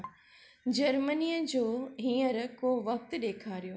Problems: none marked